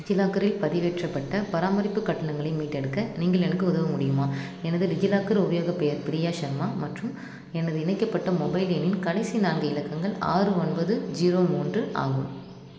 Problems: low volume